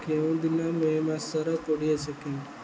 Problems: low volume